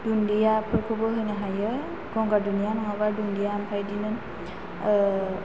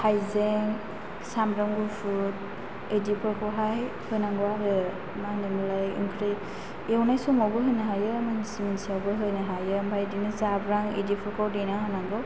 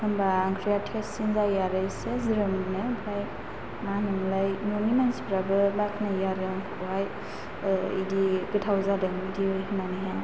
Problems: constant background noise